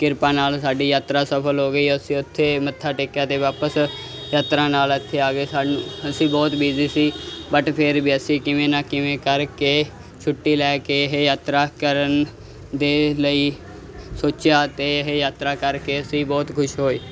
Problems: constant background noise